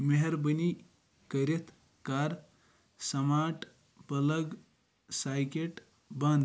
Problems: background sounds at intervals